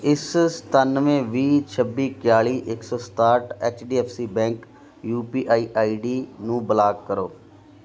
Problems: none marked